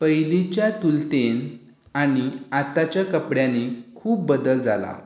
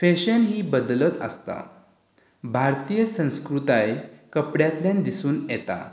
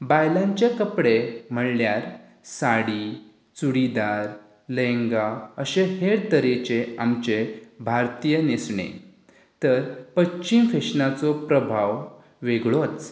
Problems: none marked